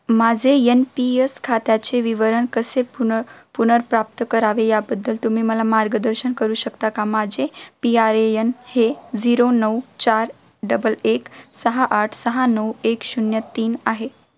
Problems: constant background noise, continuous background conversations